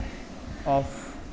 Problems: constant background noise